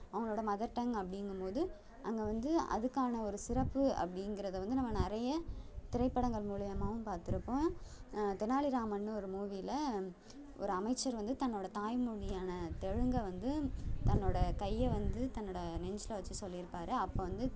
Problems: none marked